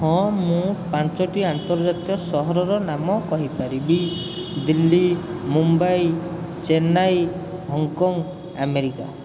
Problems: constant background noise